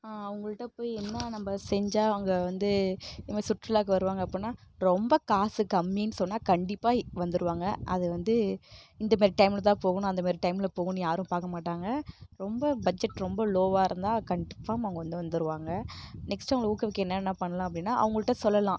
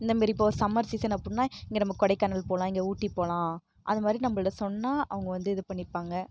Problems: background sounds at intervals